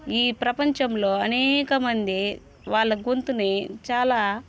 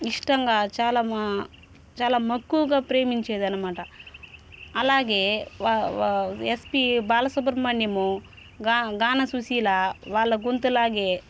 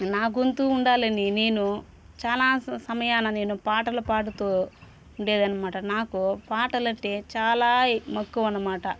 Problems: constant background noise